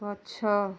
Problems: low volume